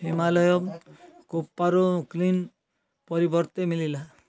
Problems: background conversations at intervals